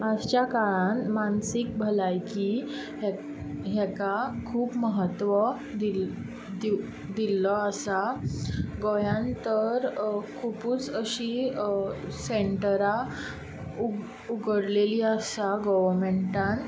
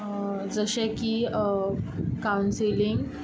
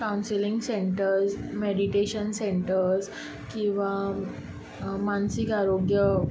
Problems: constant background noise